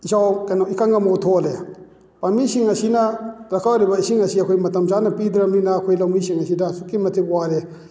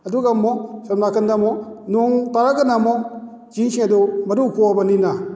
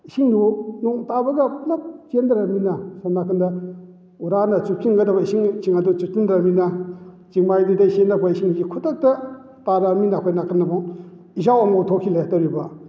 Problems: none marked